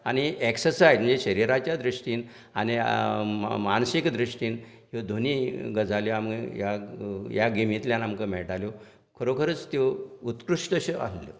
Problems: none marked